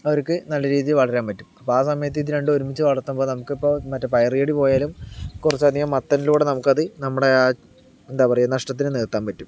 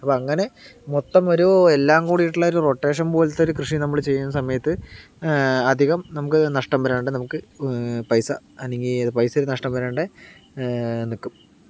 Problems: none marked